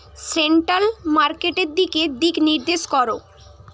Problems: constant background noise